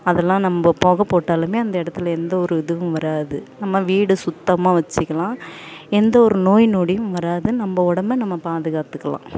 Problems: background sounds at intervals